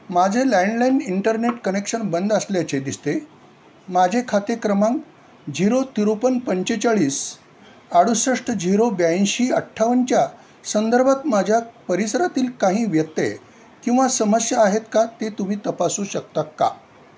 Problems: none marked